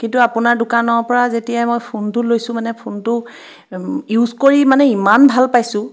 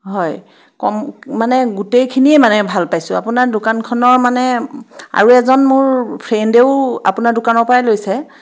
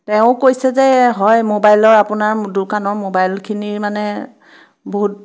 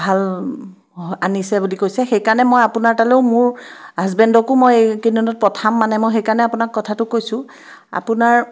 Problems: none marked